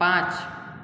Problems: none marked